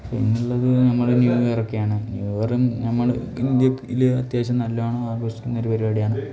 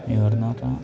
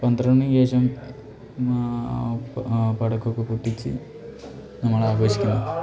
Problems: background conversations at intervals